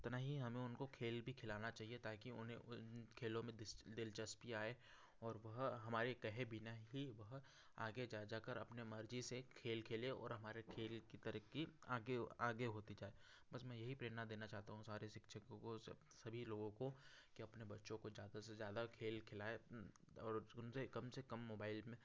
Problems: constant background noise